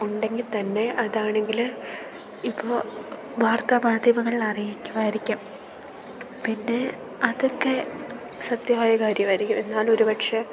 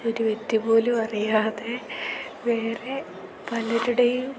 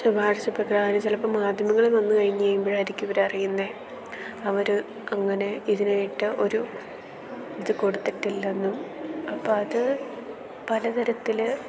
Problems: background sounds at intervals